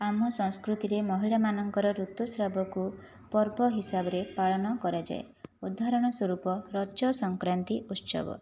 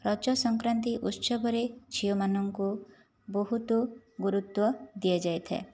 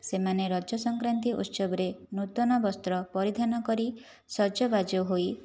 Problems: none marked